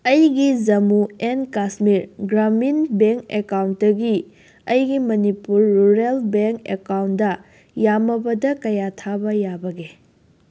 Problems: constant background noise